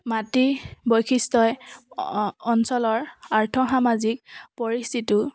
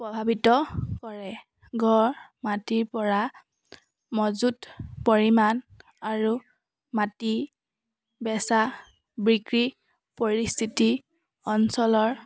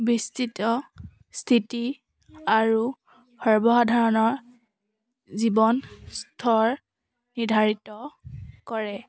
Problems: none marked